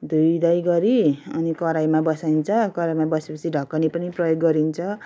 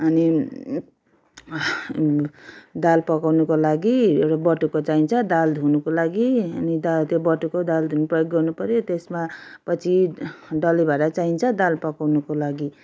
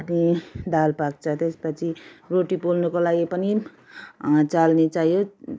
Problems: background conversations at intervals